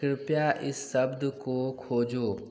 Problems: background sounds at intervals, background conversations at intervals